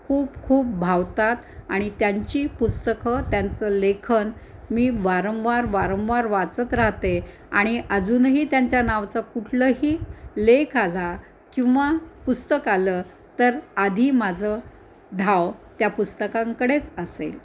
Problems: constant background noise, background conversations at intervals